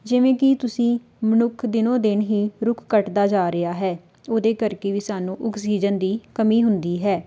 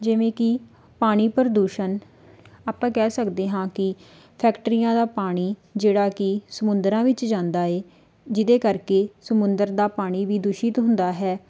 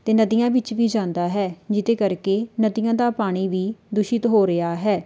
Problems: background sounds at intervals